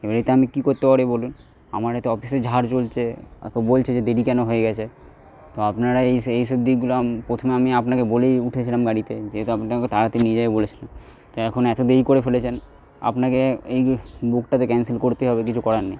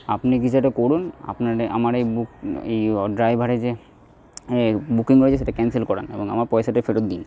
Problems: none marked